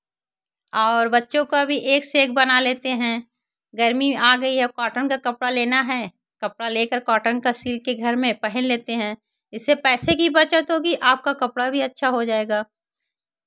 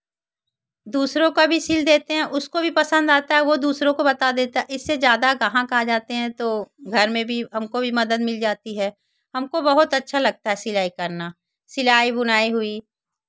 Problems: none marked